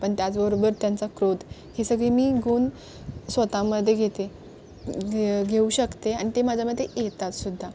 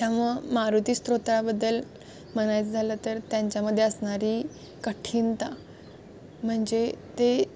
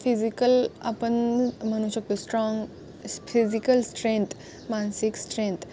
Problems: constant background noise